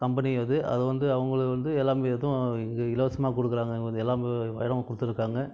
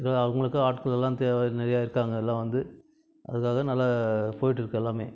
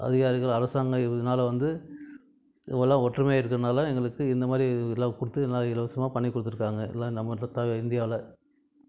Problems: background conversations at intervals